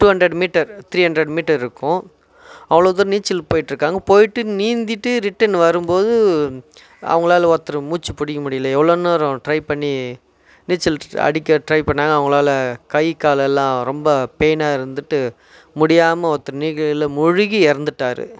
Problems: none marked